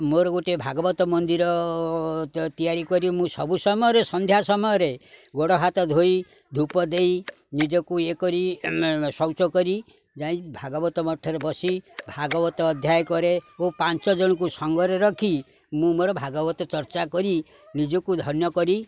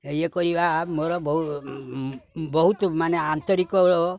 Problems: background sounds at intervals